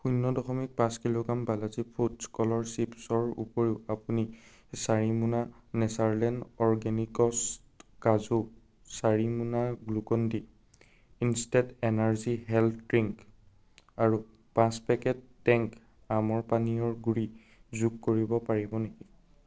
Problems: none marked